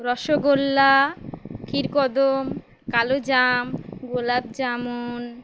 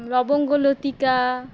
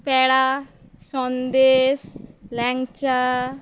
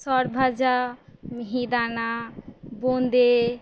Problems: constant background noise